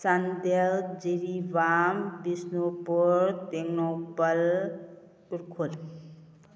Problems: none marked